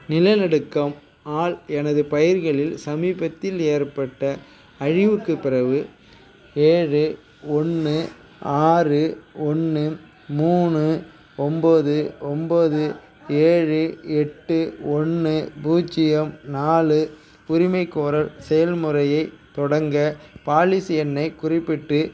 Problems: background sounds at intervals, background conversations at intervals